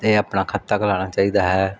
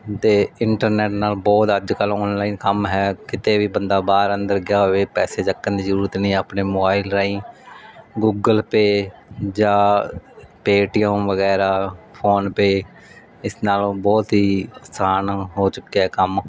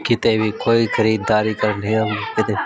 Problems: background sounds at intervals, background conversations at intervals